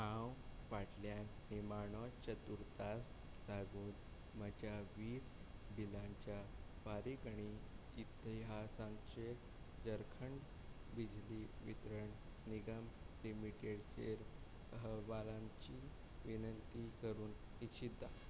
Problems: none marked